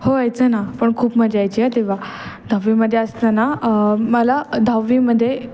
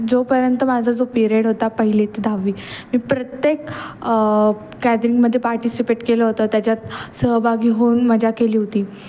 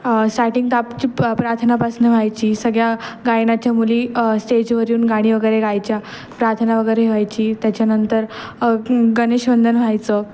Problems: none marked